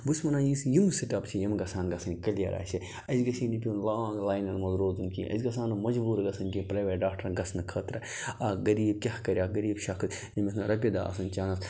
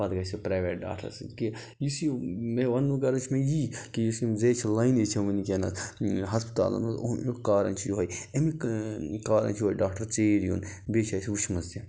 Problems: none marked